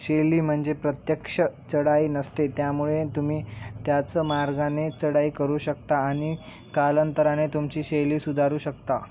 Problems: none marked